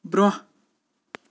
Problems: none marked